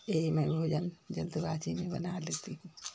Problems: none marked